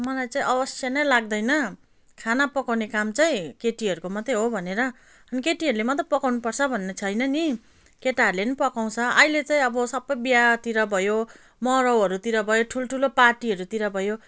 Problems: none marked